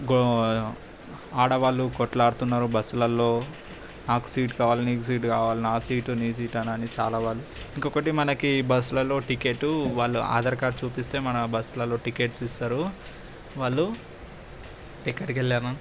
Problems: constant background noise